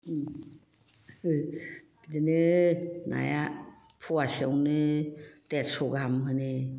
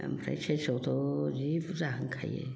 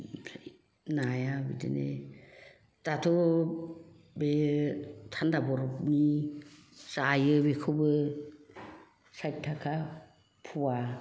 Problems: background conversations at intervals